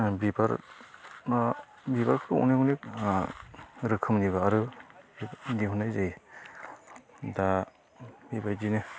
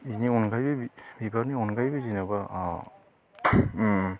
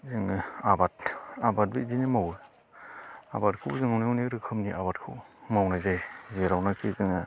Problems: constant background noise